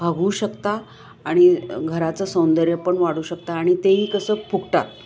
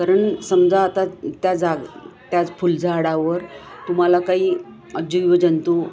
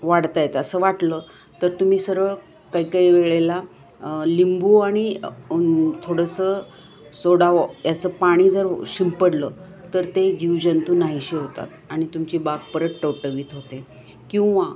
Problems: background sounds at intervals